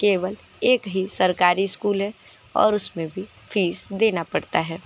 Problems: constant background noise, continuous background conversations